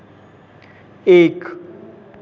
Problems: constant background noise, continuous background conversations